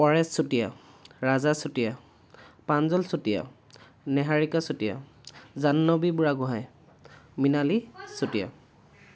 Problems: background sounds at intervals